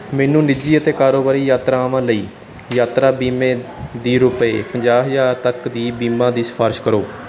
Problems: background sounds at intervals